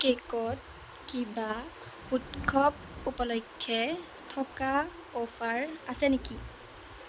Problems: constant background noise